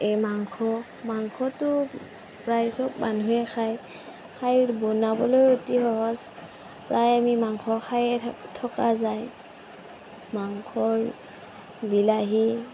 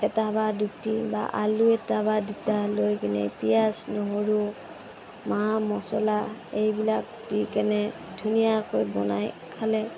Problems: constant background noise